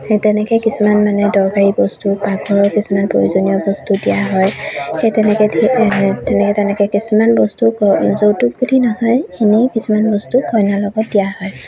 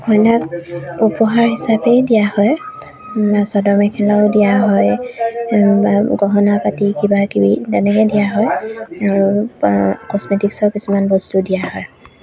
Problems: background sounds at intervals